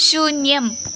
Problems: none marked